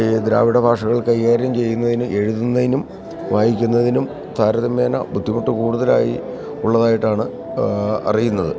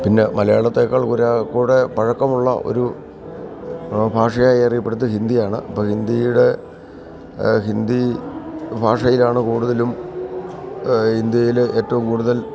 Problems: none marked